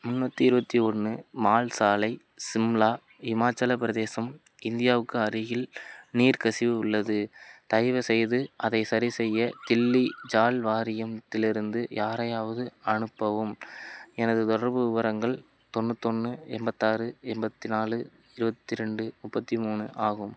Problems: none marked